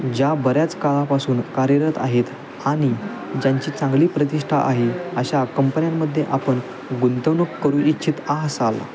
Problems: constant background noise, continuous background conversations